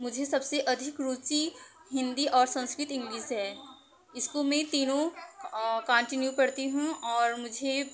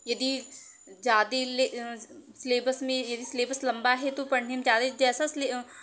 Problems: none marked